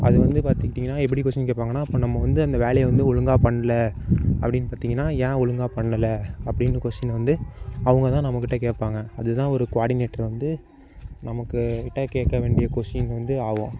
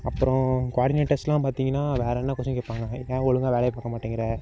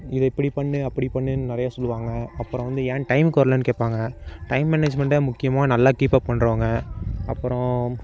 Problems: constant background noise